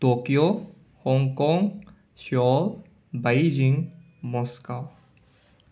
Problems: none marked